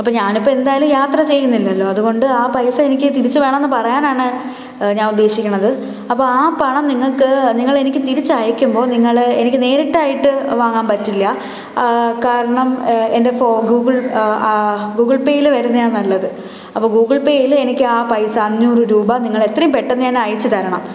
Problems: none marked